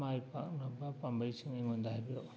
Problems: low volume